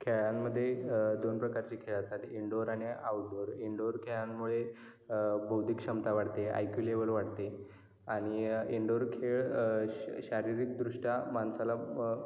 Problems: background sounds at intervals, echo